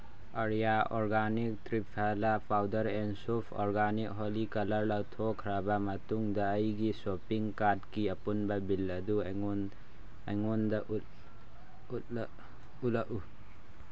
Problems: constant background noise